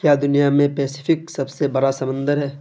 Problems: constant background noise